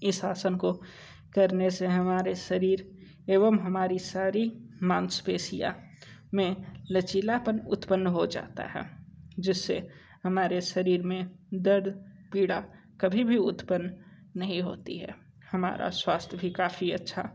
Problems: none marked